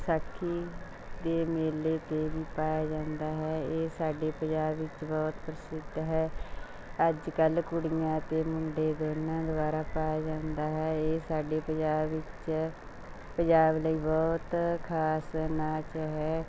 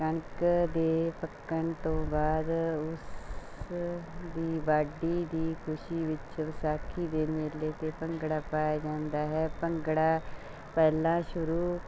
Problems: none marked